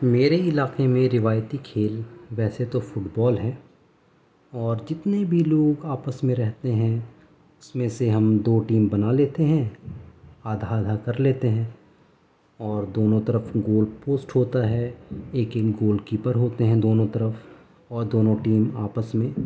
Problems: none marked